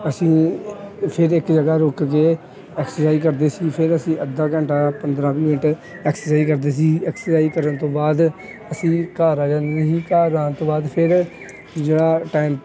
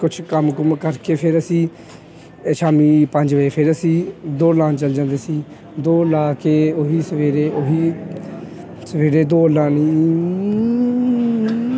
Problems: constant background noise